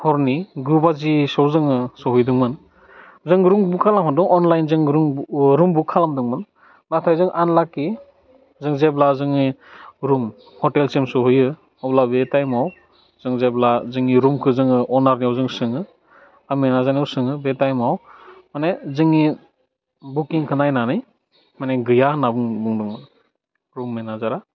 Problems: low volume